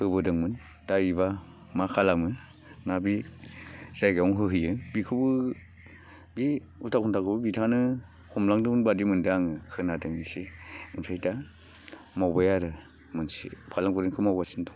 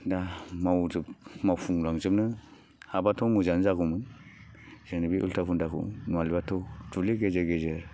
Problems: low volume